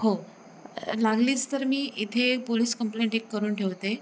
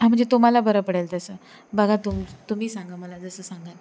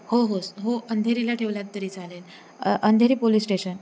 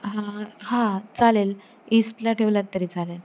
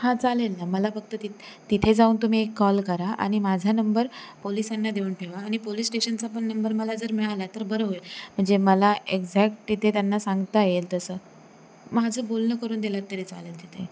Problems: none marked